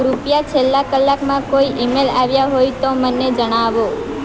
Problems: constant background noise